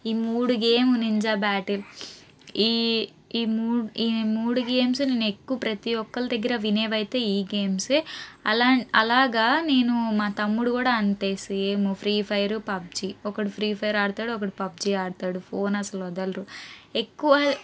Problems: none marked